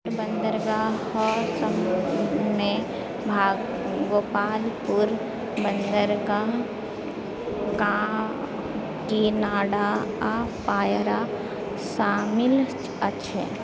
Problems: background sounds at intervals, background conversations at intervals